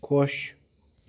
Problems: none marked